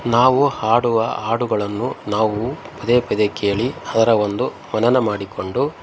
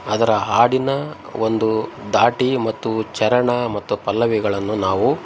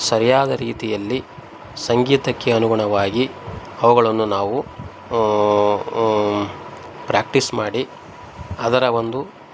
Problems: background sounds at intervals